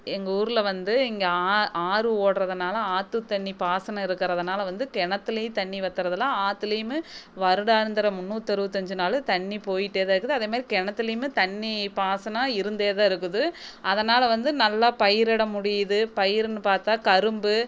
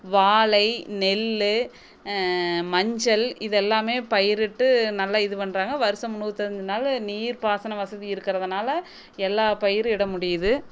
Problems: none marked